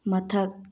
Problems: low volume